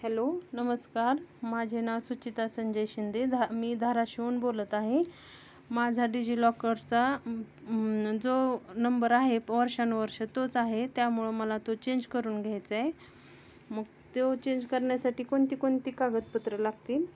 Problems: constant background noise